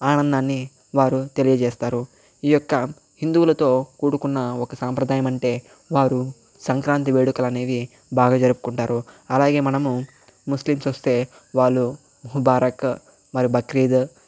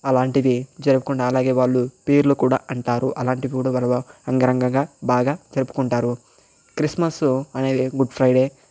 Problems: none marked